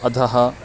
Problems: constant background noise, background conversations at intervals